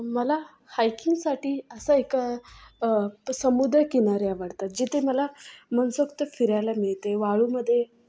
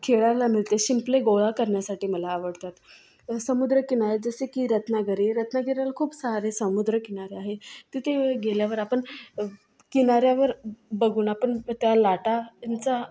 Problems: background sounds at intervals, continuous background conversations